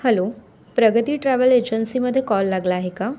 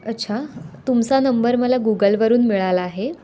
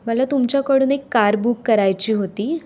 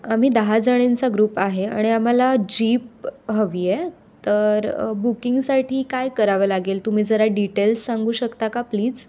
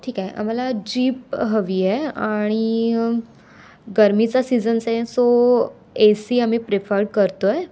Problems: constant background noise, background conversations at intervals